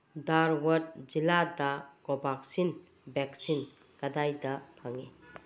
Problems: background sounds at intervals